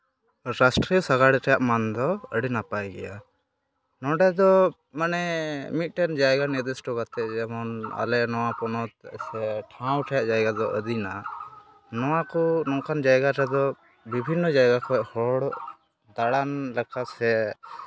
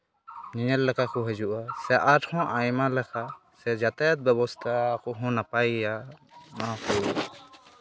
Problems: none marked